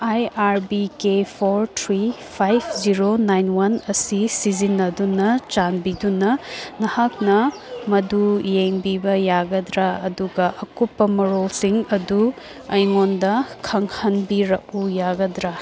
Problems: background sounds at intervals, background conversations at intervals